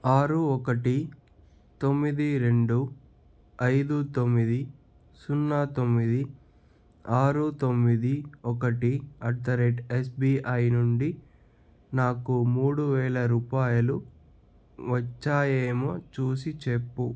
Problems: none marked